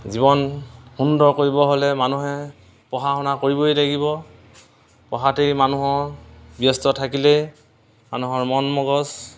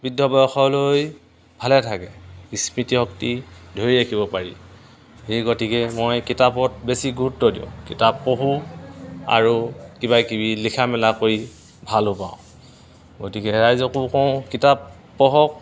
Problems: none marked